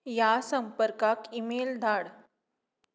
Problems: background sounds at intervals